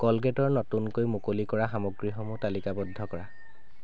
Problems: none marked